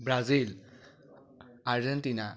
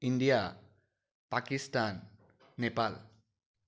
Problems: none marked